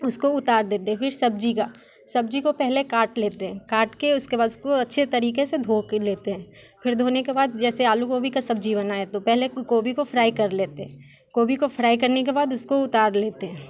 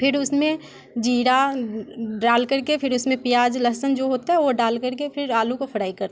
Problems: constant background noise